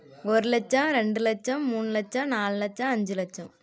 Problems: none marked